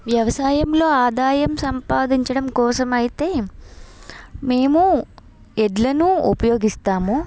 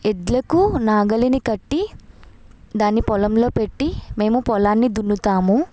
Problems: background sounds at intervals